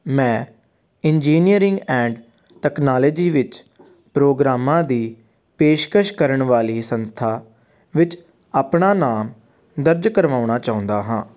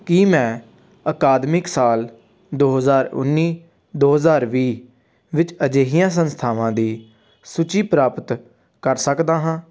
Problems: constant background noise